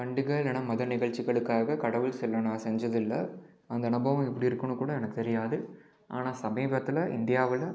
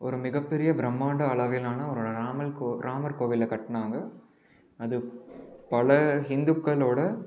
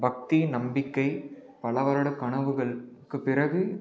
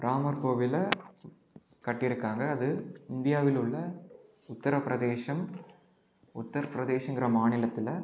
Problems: background sounds at intervals